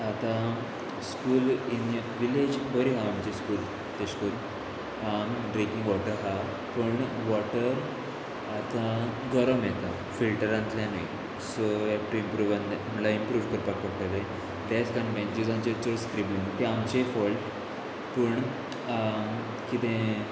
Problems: none marked